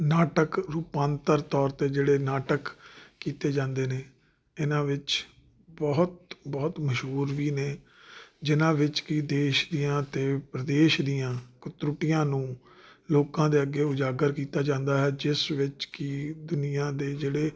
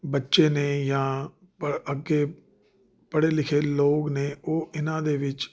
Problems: none marked